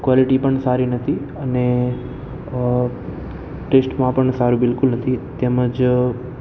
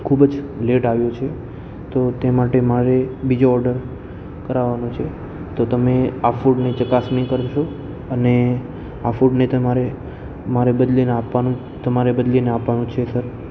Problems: constant background noise